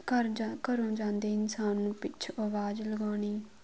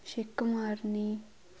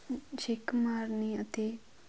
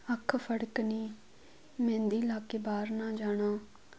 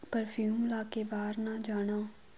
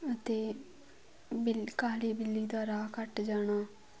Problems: none marked